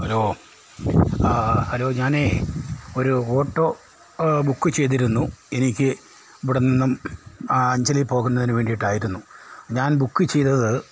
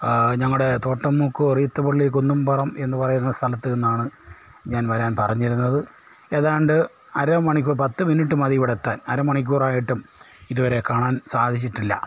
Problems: none marked